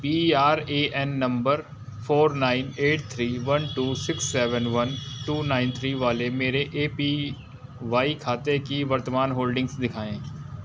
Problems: background sounds at intervals